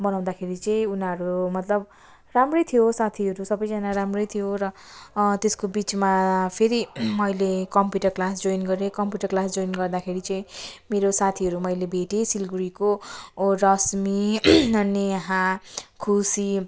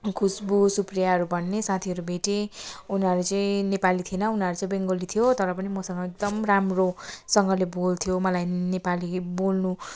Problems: background sounds at intervals